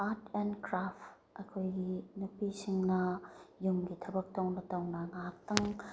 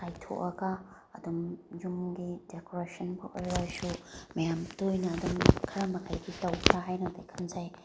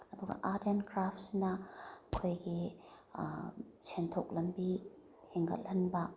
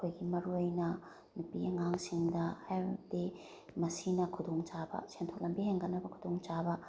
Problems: none marked